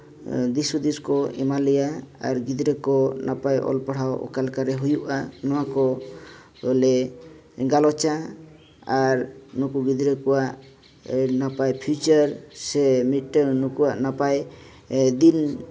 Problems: constant background noise